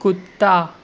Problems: constant background noise, low volume